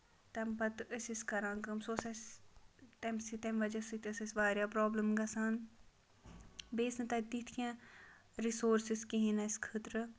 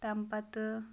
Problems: background conversations at intervals